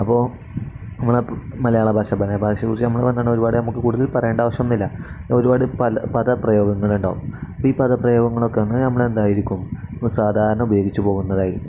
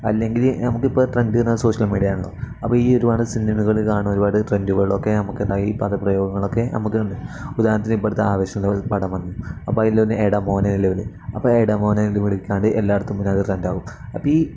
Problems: none marked